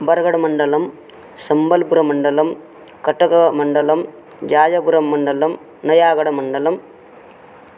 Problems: none marked